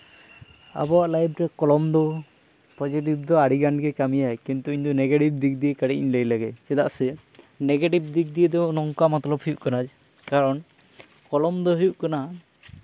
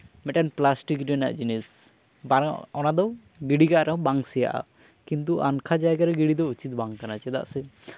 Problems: none marked